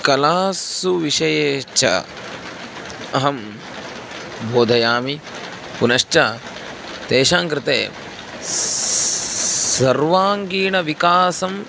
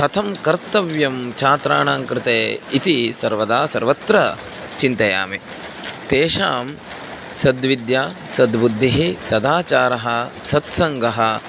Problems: constant background noise